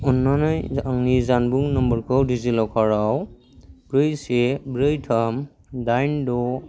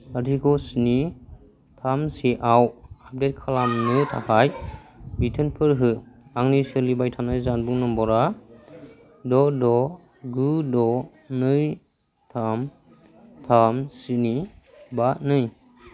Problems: low volume